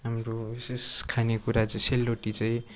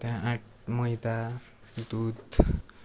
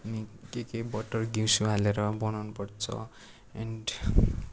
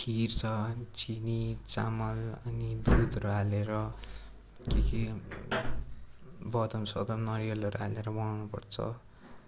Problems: constant background noise, continuous background conversations